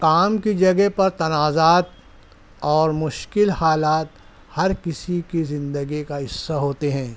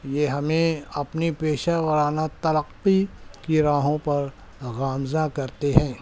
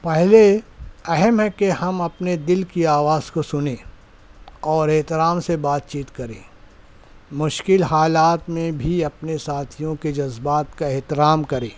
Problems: none marked